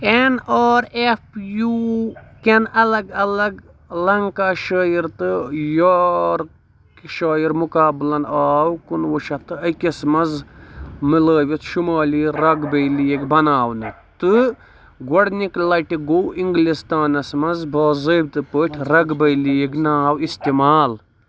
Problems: none marked